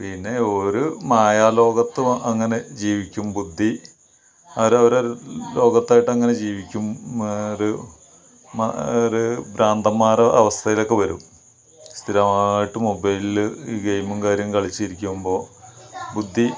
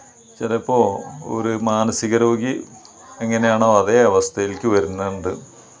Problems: background sounds at intervals